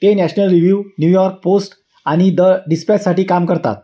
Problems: none marked